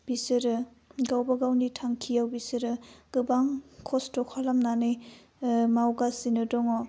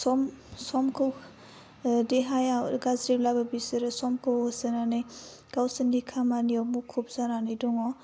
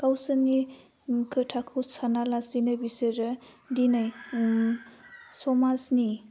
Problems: low volume